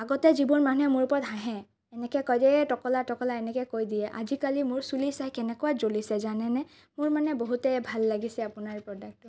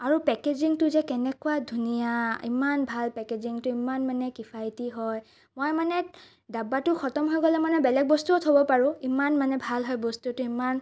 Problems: none marked